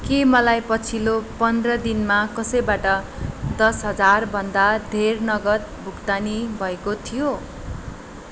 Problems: constant background noise